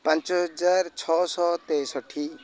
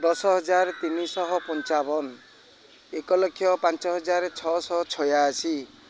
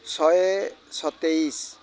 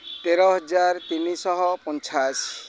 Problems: constant background noise